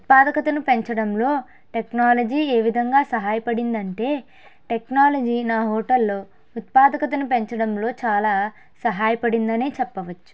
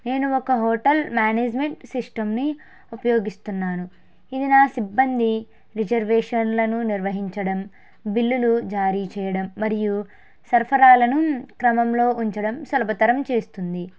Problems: none marked